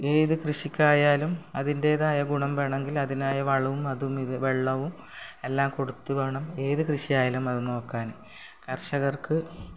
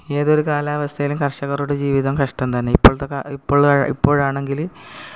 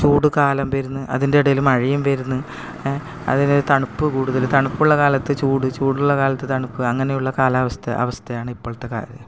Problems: background sounds at intervals